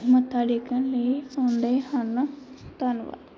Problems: none marked